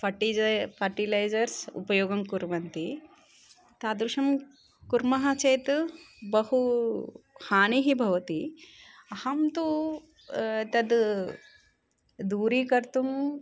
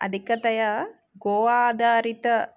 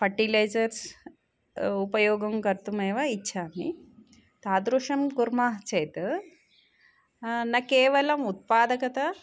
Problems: none marked